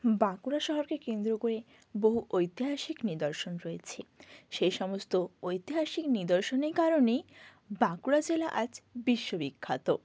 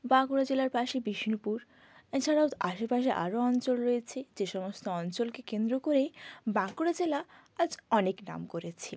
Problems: background sounds at intervals